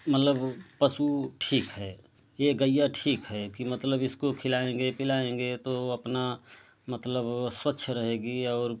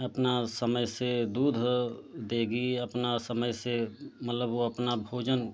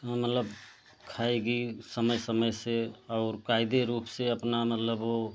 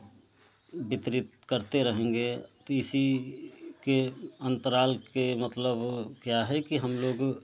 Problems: constant background noise, low volume